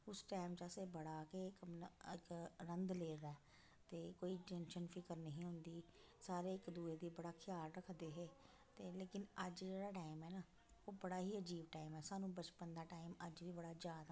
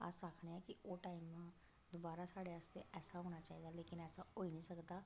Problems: constant background noise, low volume